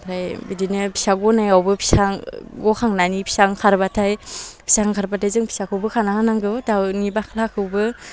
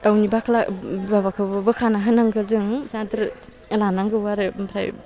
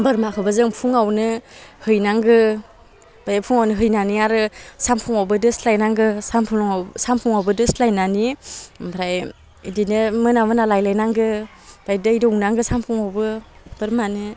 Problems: none marked